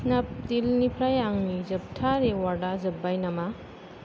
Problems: low volume